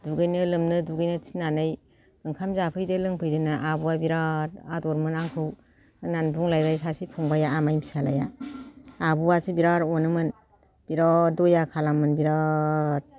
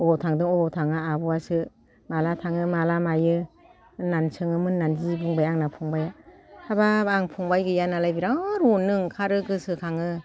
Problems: none marked